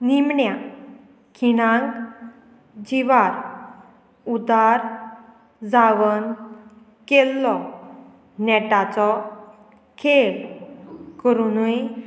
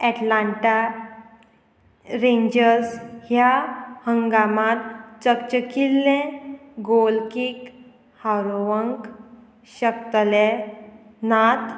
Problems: none marked